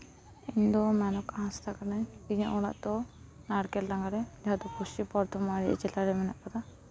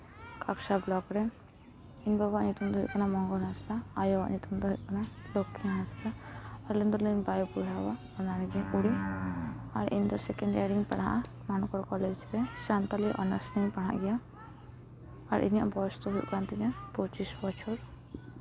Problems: none marked